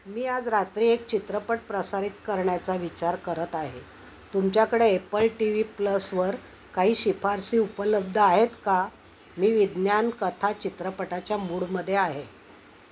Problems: constant background noise